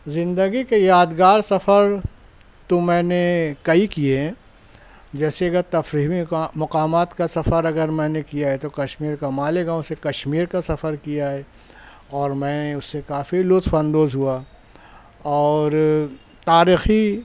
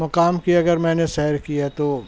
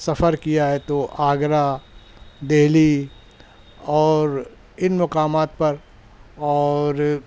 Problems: none marked